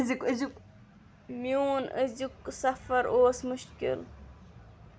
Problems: background sounds at intervals, background conversations at intervals